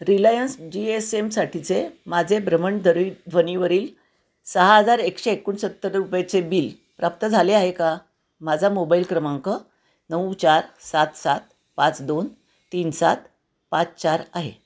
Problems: constant background noise